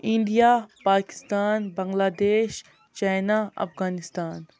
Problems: none marked